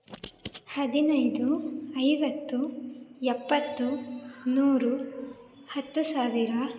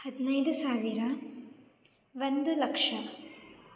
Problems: none marked